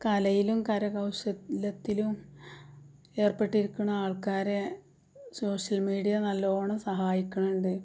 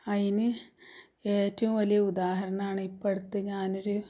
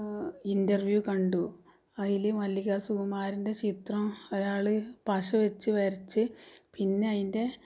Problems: low volume